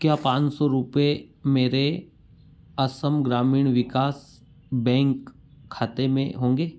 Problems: background sounds at intervals